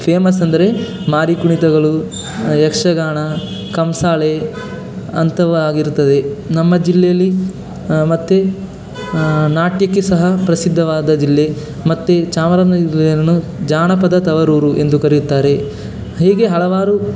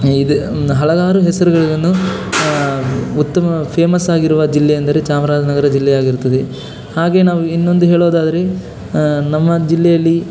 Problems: constant background noise